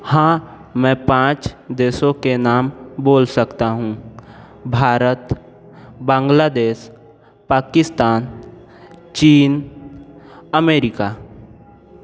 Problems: none marked